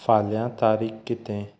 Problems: background sounds at intervals